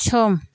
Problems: none marked